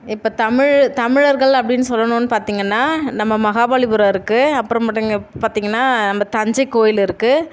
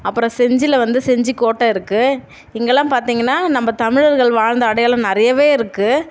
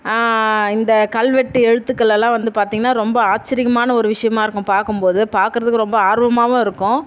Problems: none marked